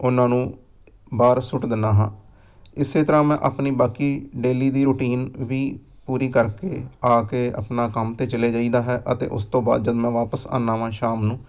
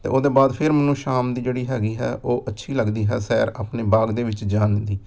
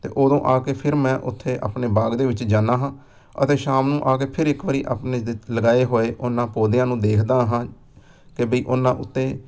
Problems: background sounds at intervals